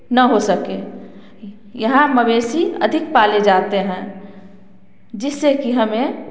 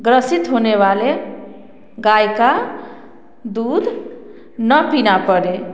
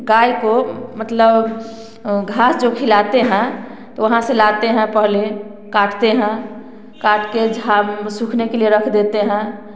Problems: constant background noise